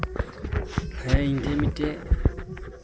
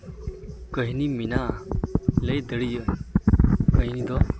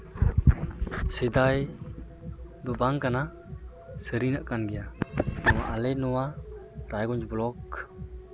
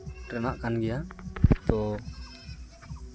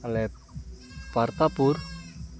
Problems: none marked